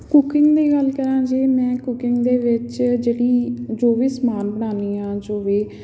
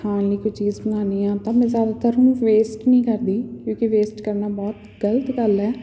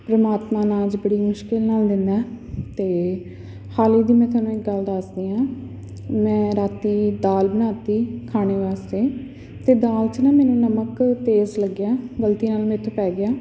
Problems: background sounds at intervals, background conversations at intervals